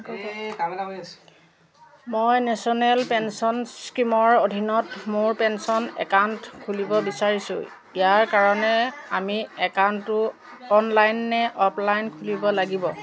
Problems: continuous background conversations